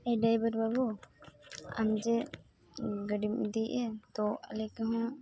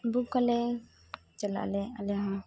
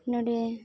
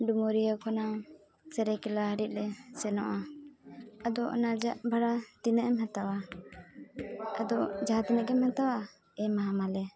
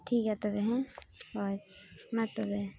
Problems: background sounds at intervals, background conversations at intervals